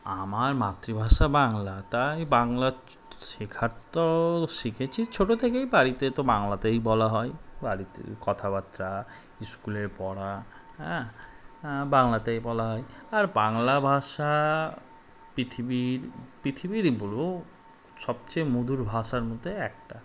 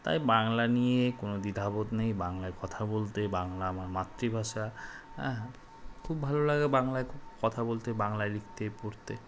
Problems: constant background noise